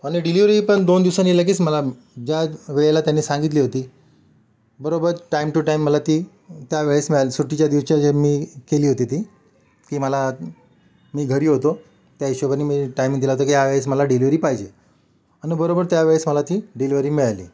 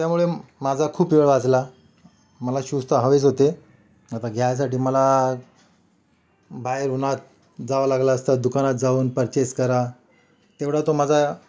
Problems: background sounds at intervals, background conversations at intervals